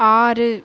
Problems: background sounds at intervals